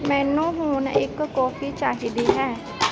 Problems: constant background noise